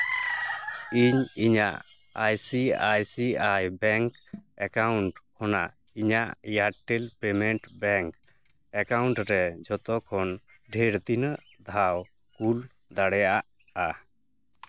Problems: background sounds at intervals